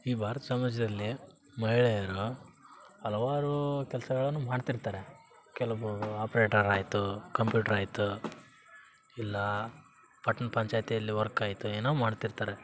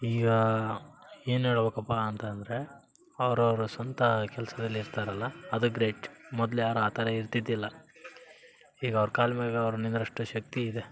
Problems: background sounds at intervals